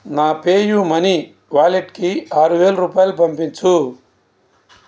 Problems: none marked